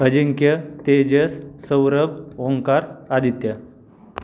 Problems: none marked